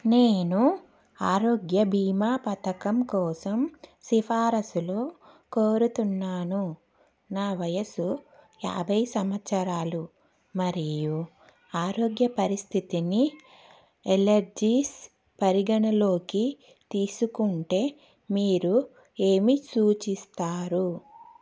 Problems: none marked